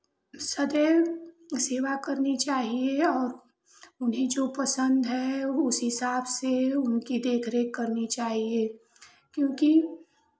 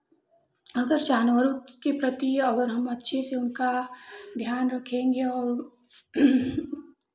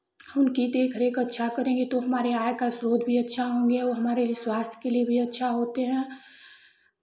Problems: none marked